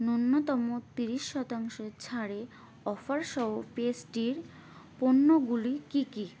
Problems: none marked